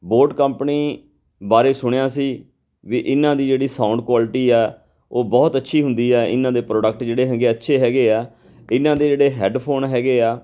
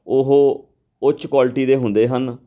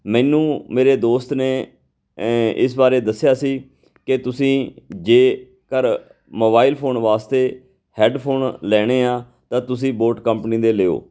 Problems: background conversations at intervals